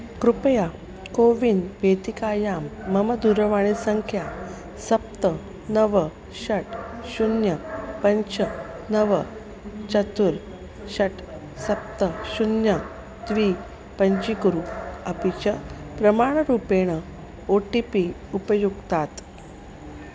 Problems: constant background noise